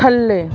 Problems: none marked